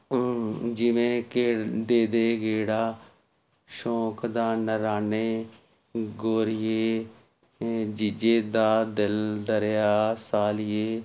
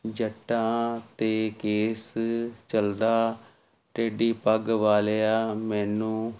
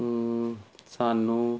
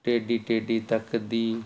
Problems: constant background noise